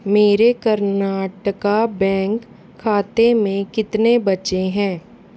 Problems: none marked